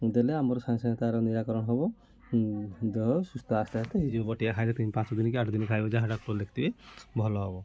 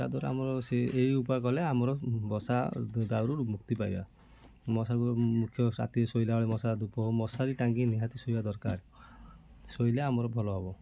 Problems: constant background noise, continuous background conversations